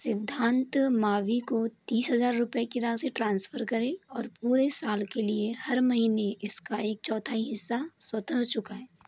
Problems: none marked